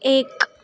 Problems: none marked